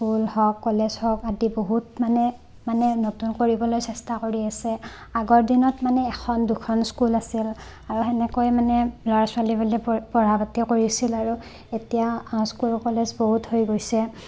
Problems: constant background noise